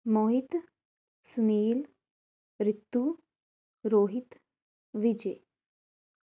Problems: none marked